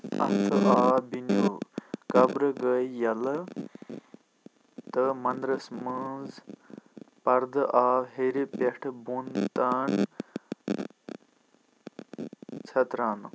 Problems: constant background noise